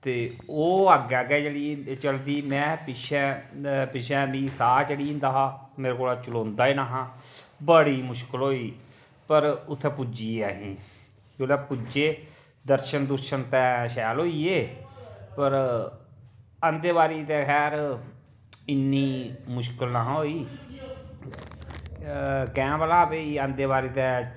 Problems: none marked